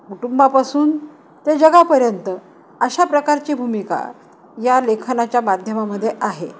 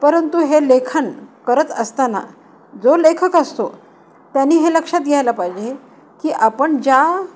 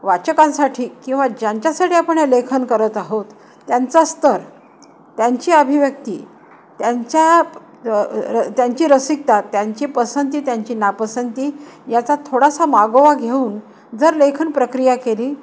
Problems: constant background noise